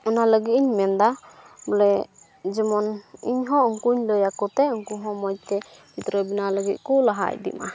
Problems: none marked